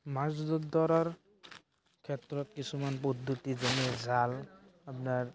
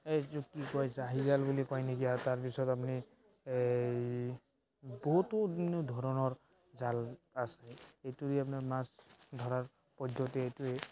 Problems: background sounds at intervals, background conversations at intervals